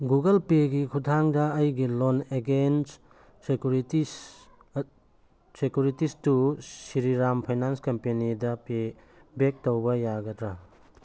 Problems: none marked